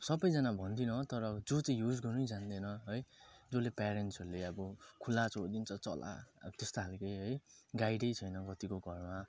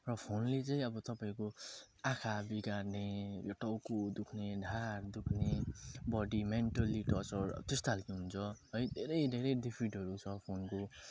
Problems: none marked